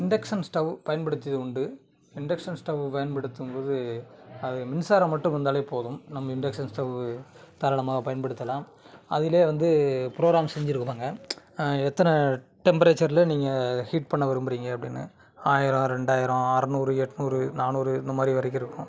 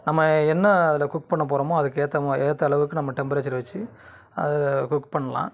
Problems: background sounds at intervals, background conversations at intervals